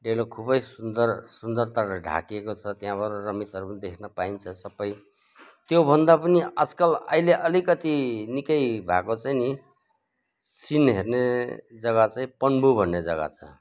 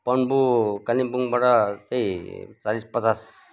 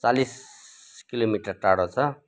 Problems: none marked